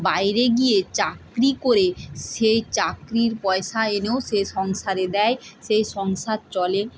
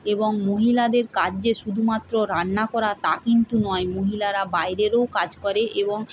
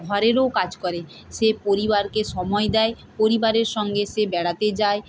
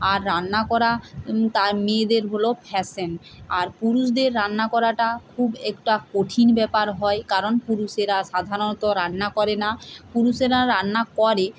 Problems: constant background noise